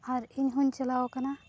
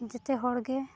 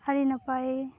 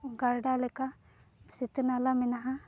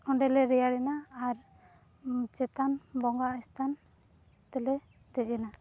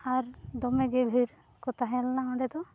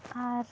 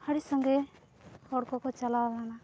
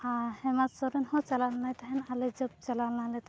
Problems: none marked